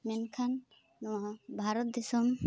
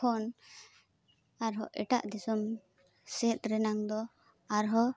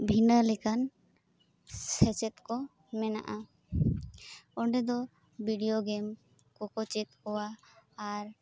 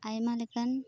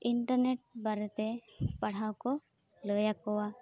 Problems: background sounds at intervals